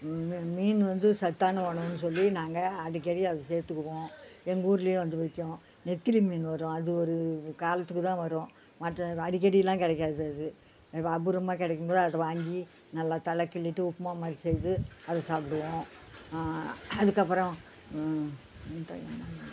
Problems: background sounds at intervals